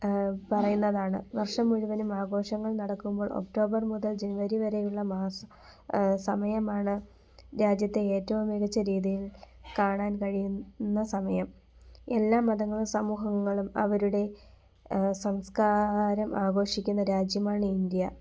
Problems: background sounds at intervals